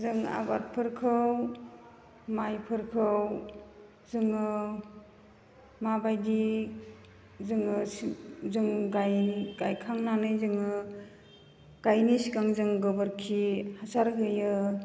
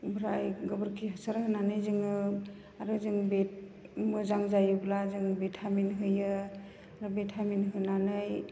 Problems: none marked